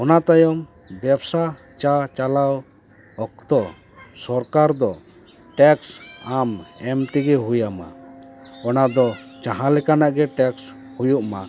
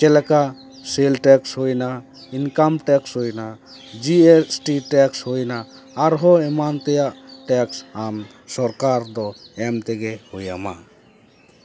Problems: background conversations at intervals